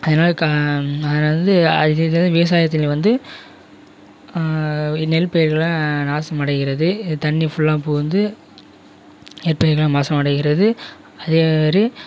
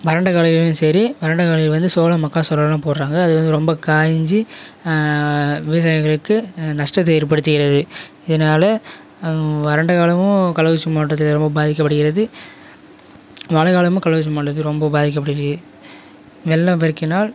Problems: constant background noise